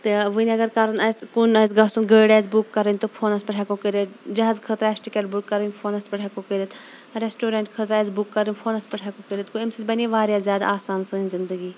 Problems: constant background noise